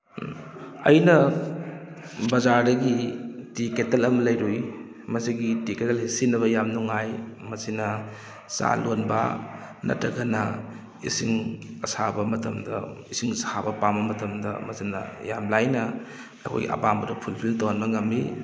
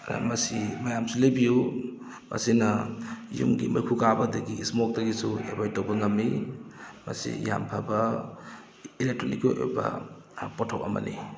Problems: none marked